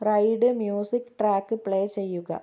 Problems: low volume